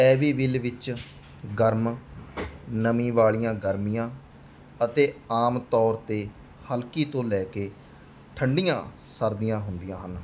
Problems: background sounds at intervals